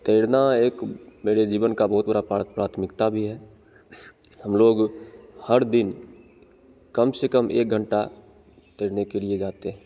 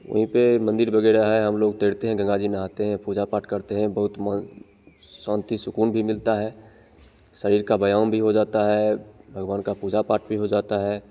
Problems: constant background noise